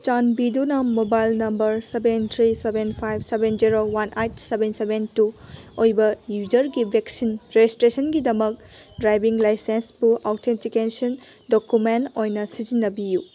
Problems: background sounds at intervals, background conversations at intervals